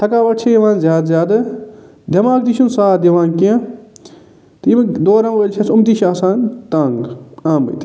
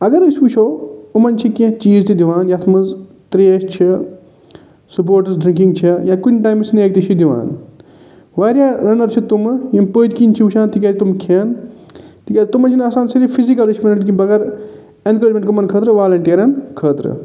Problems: none marked